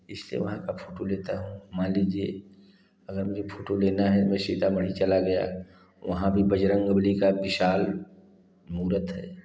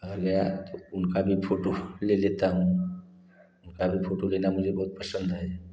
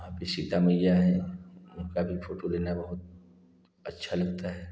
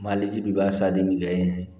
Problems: none marked